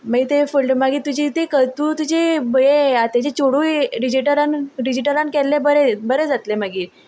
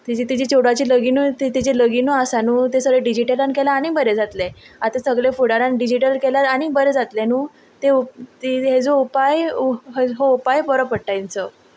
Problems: constant background noise